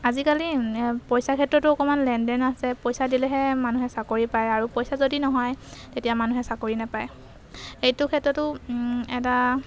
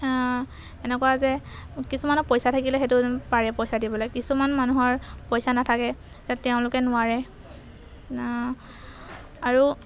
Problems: background sounds at intervals